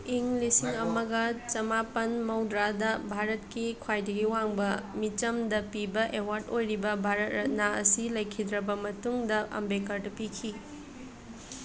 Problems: continuous background conversations